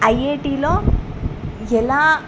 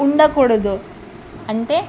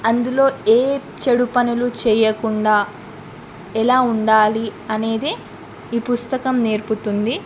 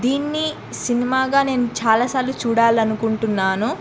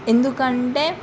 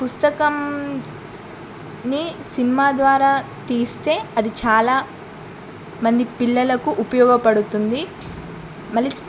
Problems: none marked